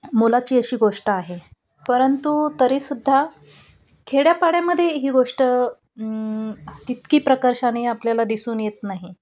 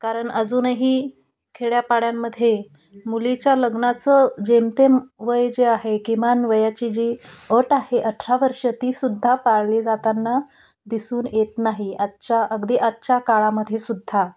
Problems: none marked